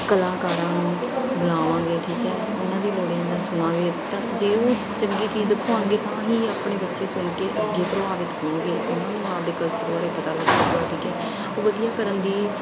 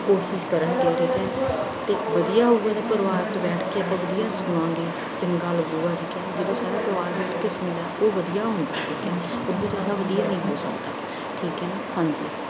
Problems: background sounds at intervals